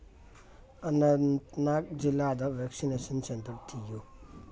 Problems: low volume